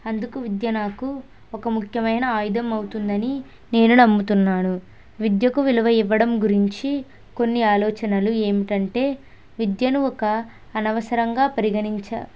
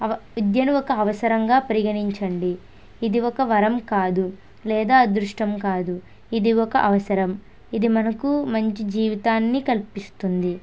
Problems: none marked